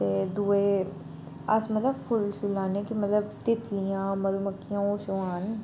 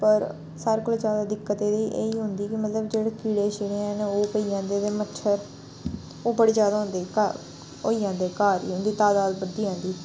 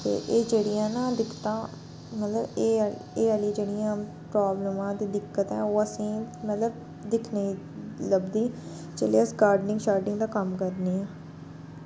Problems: background sounds at intervals